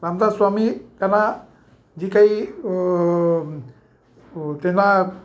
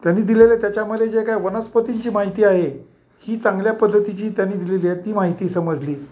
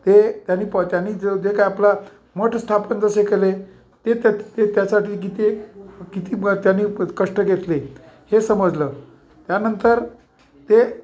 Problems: background sounds at intervals